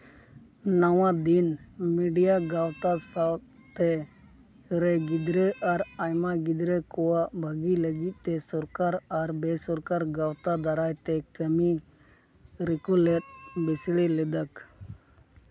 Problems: background sounds at intervals